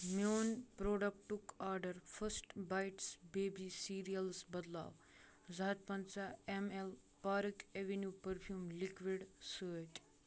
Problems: none marked